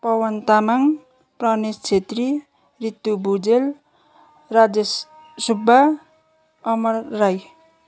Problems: none marked